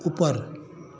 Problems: constant background noise